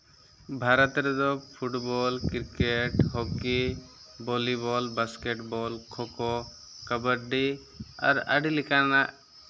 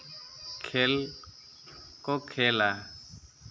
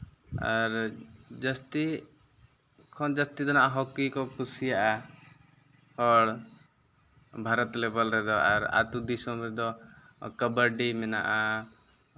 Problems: none marked